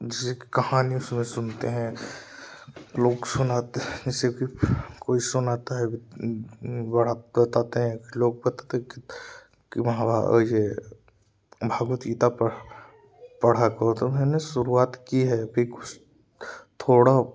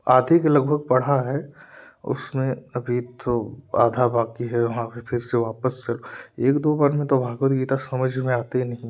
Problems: none marked